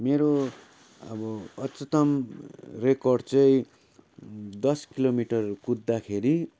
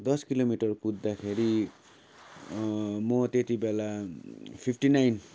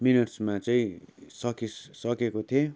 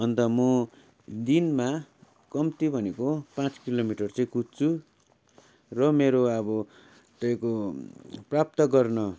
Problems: constant background noise